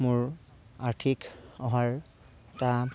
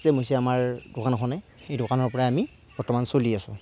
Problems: background sounds at intervals